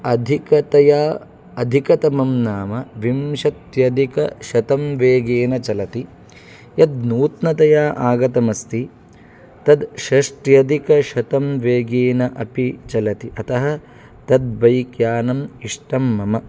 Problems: none marked